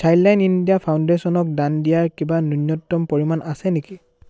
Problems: none marked